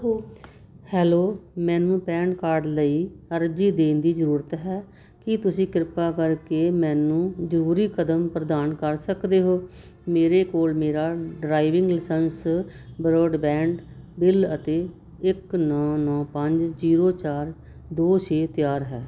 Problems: none marked